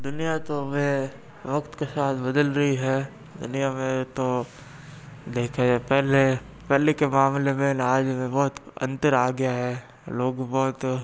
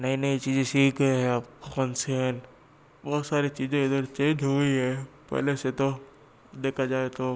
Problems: background sounds at intervals